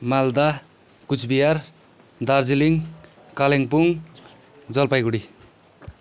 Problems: none marked